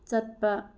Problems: low volume